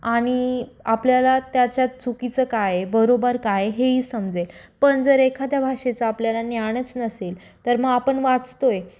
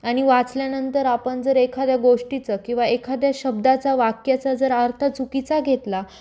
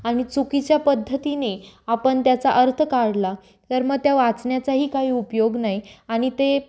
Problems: constant background noise, echo